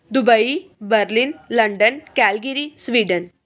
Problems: none marked